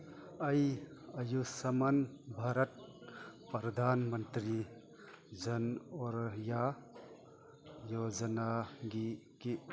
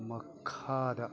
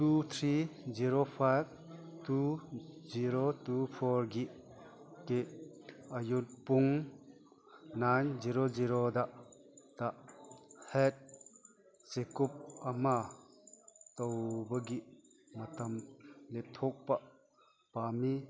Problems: background sounds at intervals